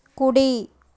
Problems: constant background noise